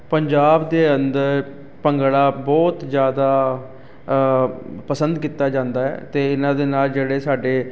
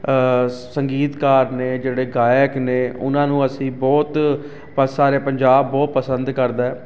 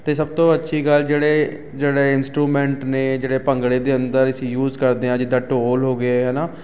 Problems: constant background noise